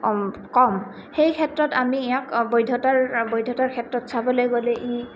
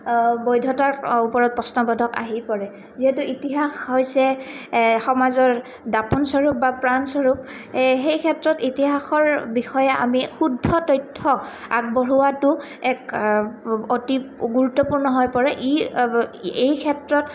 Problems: constant background noise